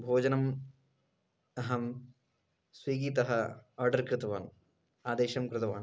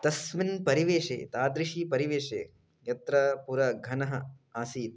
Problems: constant background noise